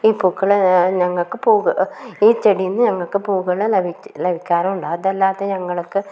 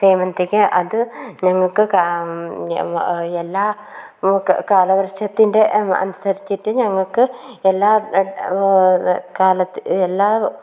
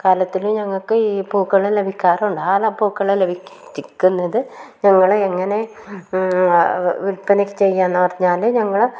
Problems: background sounds at intervals, low volume